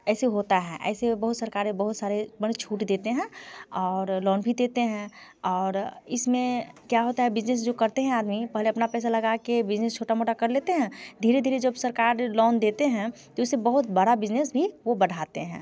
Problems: constant background noise